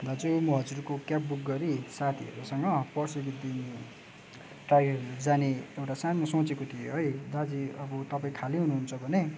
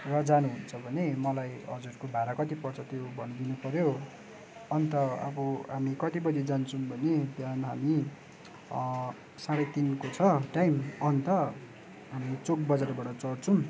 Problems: background sounds at intervals